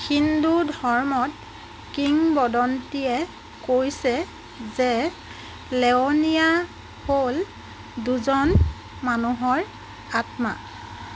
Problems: constant background noise